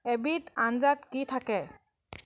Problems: none marked